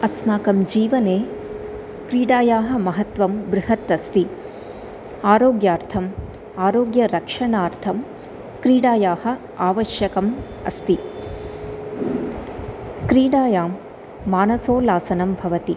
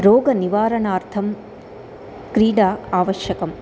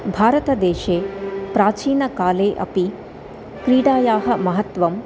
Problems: constant background noise, continuous background conversations